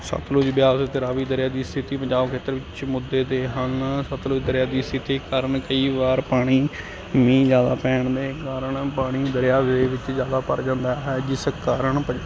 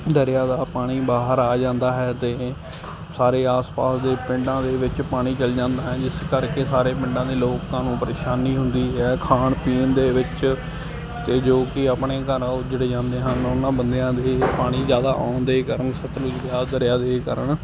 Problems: constant background noise